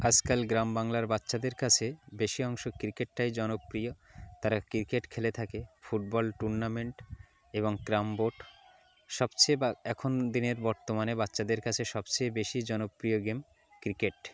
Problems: background conversations at intervals